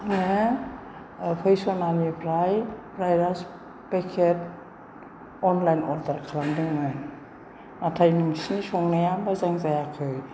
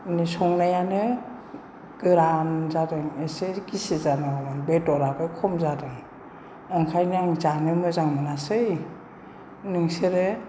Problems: none marked